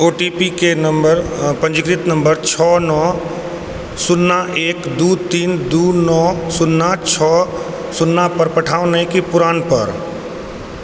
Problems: constant background noise